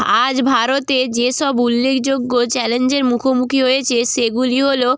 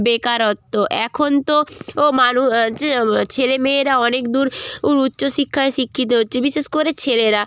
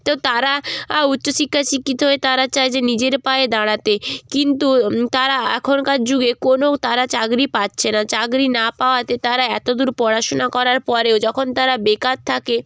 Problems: background sounds at intervals